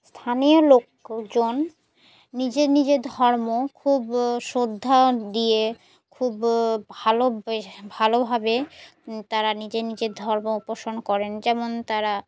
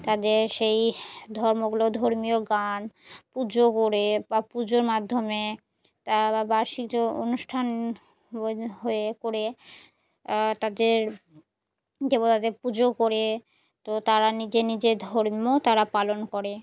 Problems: background sounds at intervals